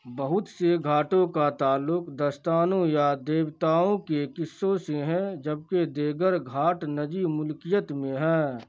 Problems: none marked